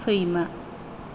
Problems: low volume